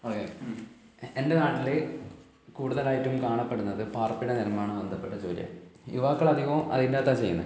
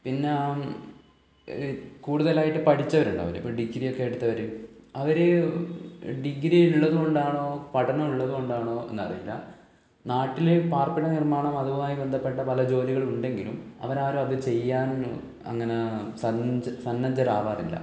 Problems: low volume